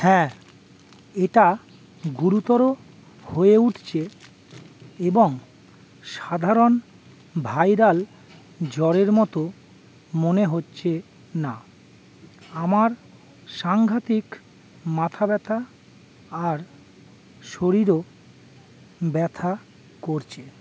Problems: constant background noise